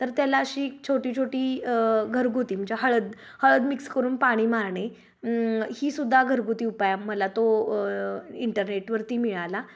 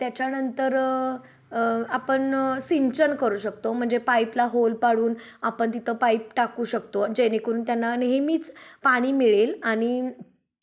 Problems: background sounds at intervals, background conversations at intervals